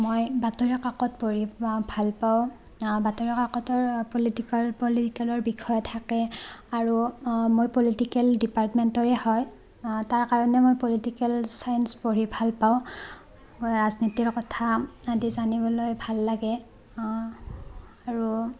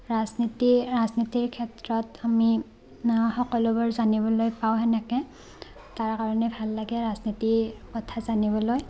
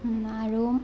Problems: constant background noise, continuous background conversations